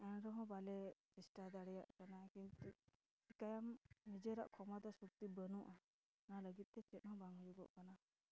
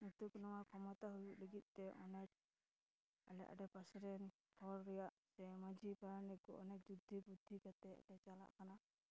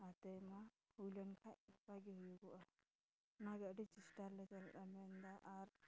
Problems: background sounds at intervals, background conversations at intervals, low volume